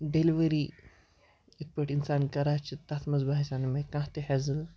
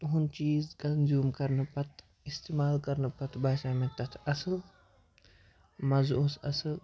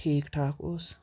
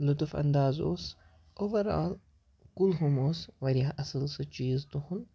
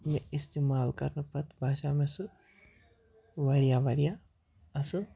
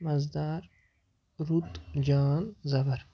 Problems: background sounds at intervals